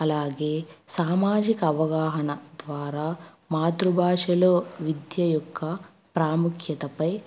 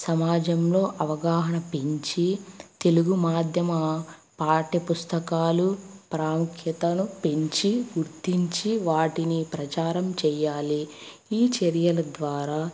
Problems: constant background noise